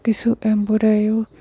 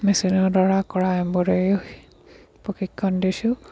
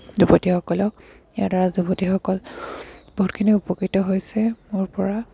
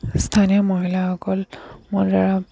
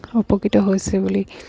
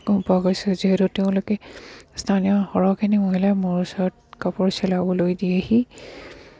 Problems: background sounds at intervals